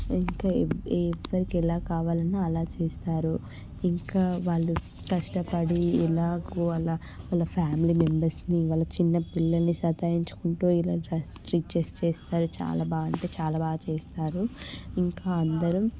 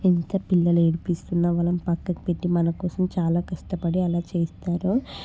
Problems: constant background noise, background conversations at intervals